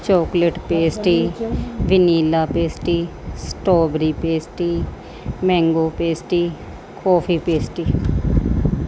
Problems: background sounds at intervals